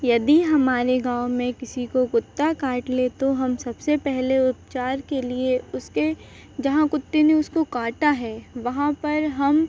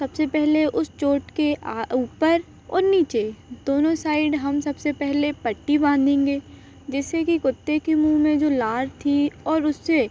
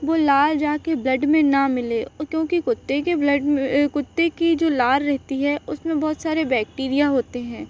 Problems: constant background noise